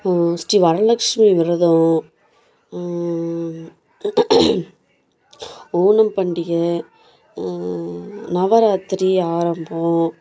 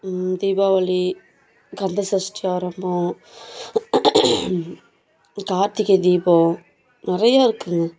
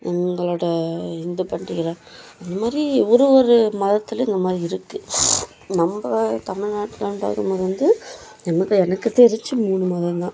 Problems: background sounds at intervals